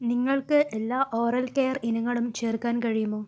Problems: low volume